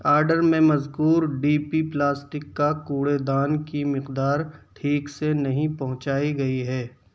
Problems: constant background noise, low volume